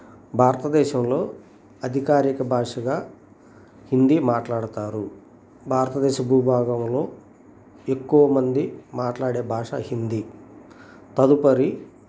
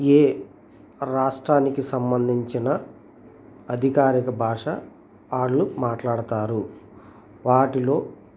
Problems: constant background noise